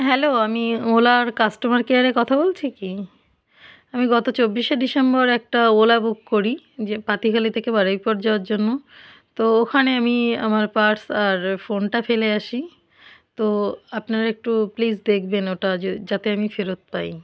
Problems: none marked